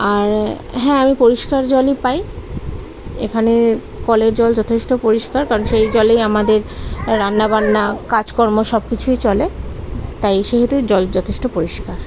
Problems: constant background noise, continuous background conversations